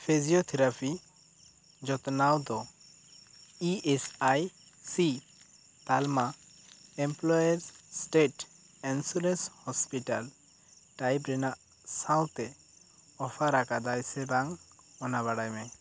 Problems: constant background noise